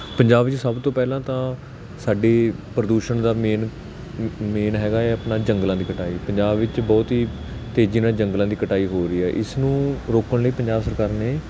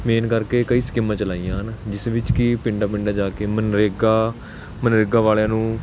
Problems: constant background noise